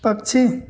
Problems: constant background noise